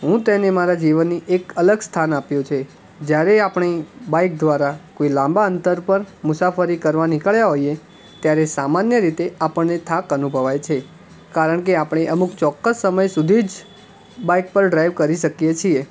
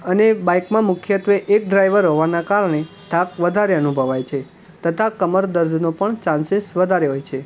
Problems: constant background noise